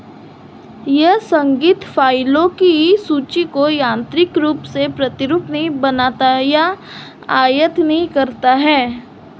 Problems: constant background noise